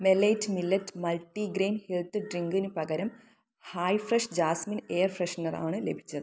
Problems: none marked